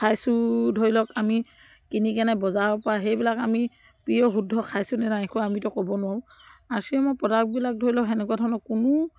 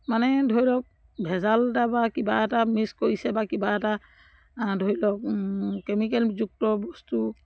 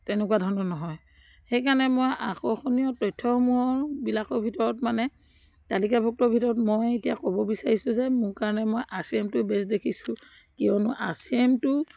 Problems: background sounds at intervals